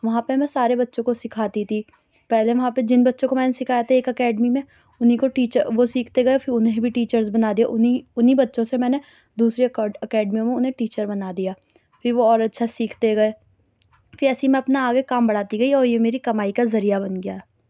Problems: low volume